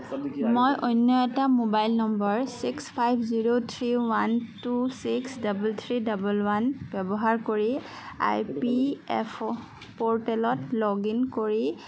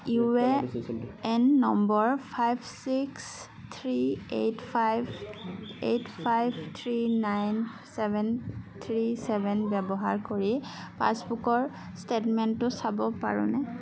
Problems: background sounds at intervals, background conversations at intervals